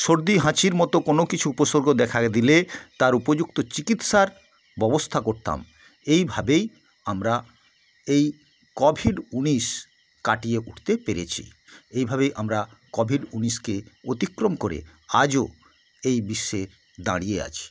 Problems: constant background noise